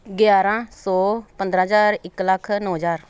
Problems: background sounds at intervals